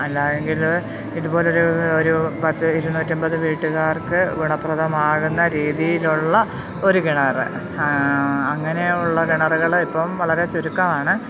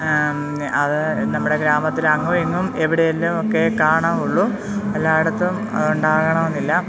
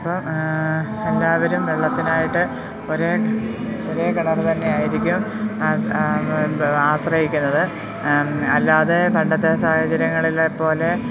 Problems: constant background noise